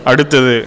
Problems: constant background noise